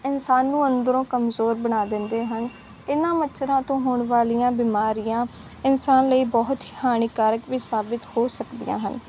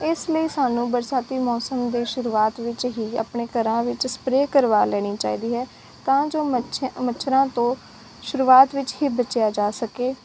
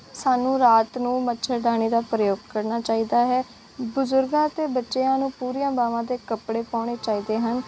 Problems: none marked